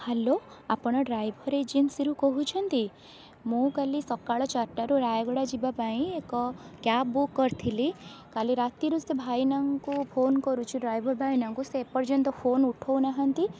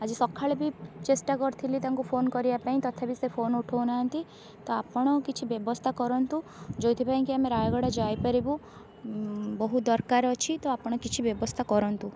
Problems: constant background noise